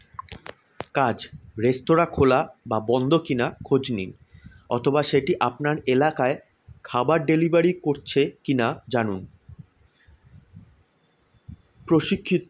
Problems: constant background noise